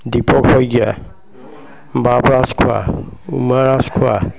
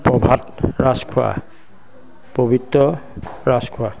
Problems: none marked